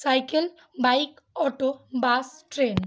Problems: constant background noise